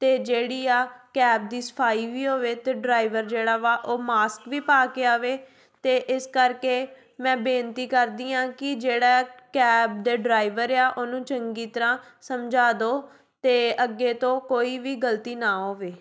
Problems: none marked